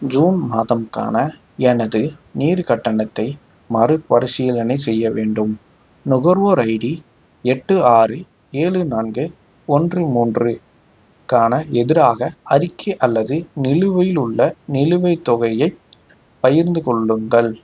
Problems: none marked